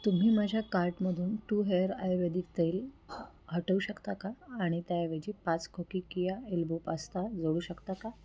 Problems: constant background noise